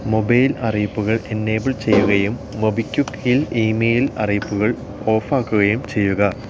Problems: background sounds at intervals